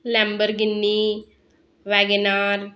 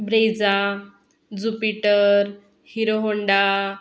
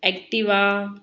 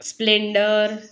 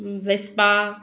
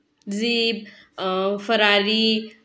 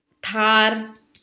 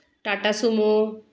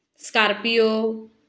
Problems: background sounds at intervals, background conversations at intervals